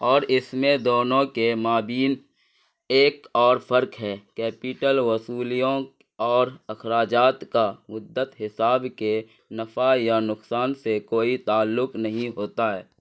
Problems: none marked